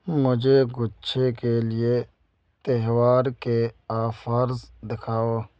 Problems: background sounds at intervals